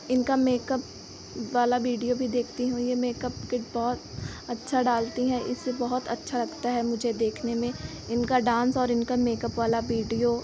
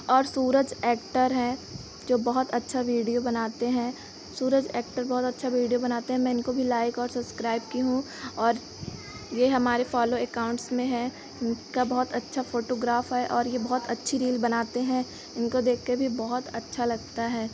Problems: none marked